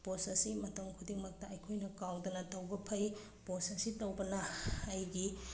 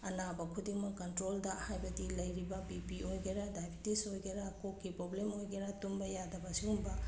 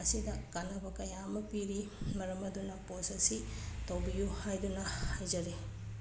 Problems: background sounds at intervals